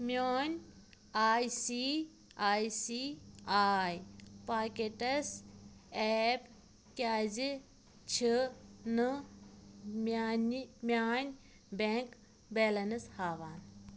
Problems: constant background noise